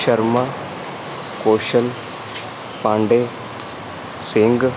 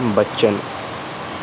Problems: constant background noise